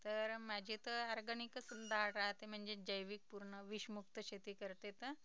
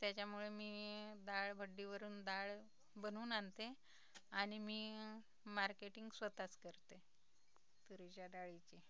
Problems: low volume